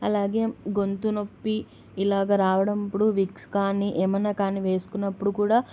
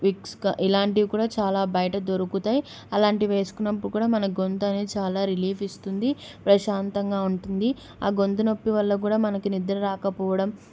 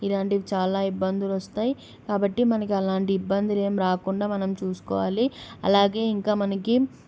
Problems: none marked